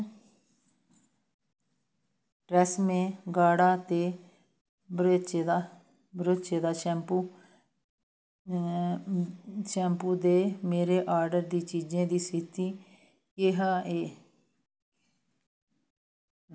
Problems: constant background noise